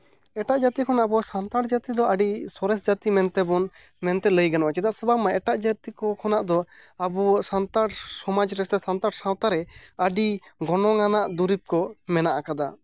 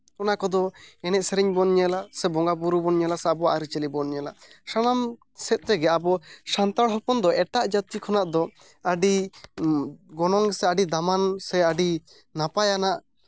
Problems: none marked